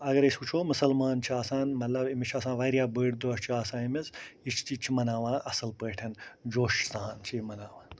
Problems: constant background noise